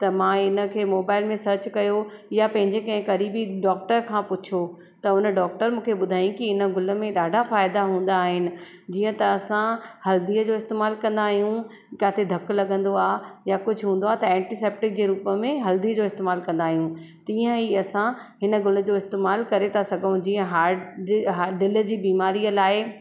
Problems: constant background noise, echo